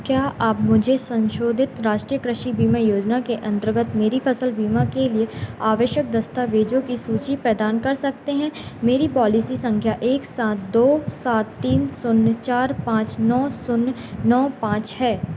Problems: none marked